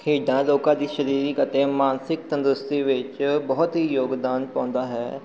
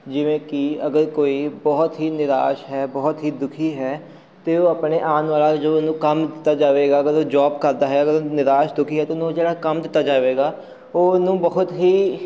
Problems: none marked